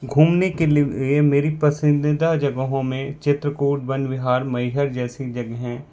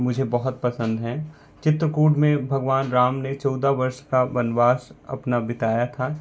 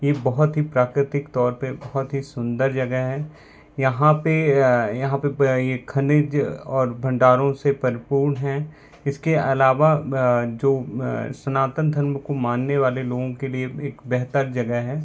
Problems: constant background noise